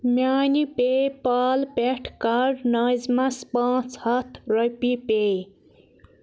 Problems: none marked